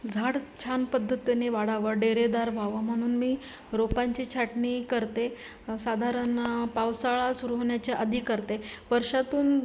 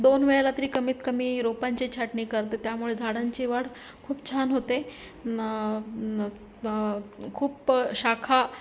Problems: constant background noise, background conversations at intervals